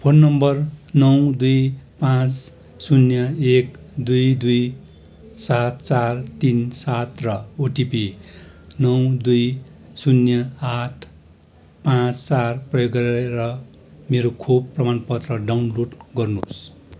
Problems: none marked